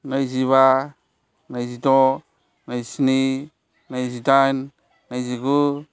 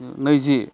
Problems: constant background noise